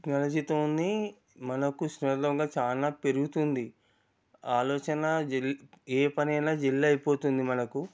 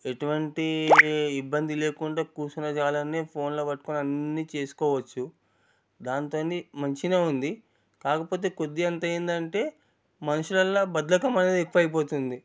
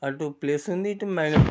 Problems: none marked